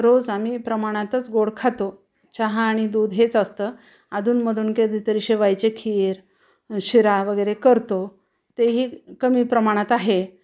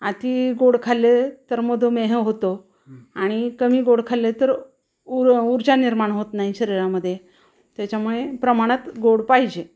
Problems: background sounds at intervals